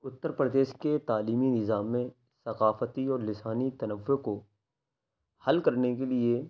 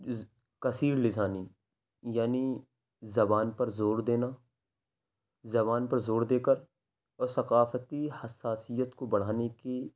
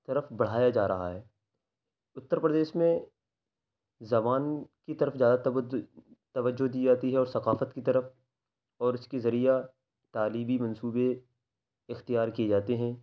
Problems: none marked